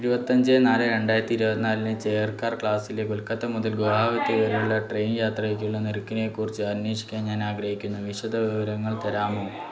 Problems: none marked